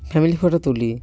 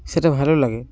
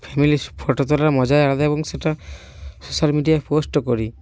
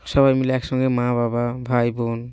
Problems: none marked